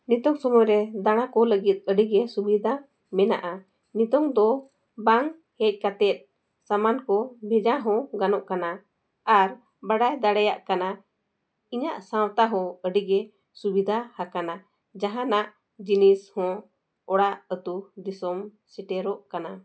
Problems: none marked